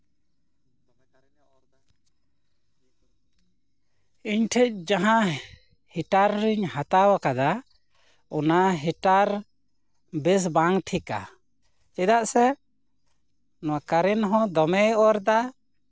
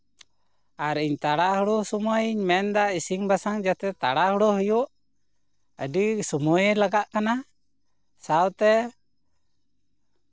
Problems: constant background noise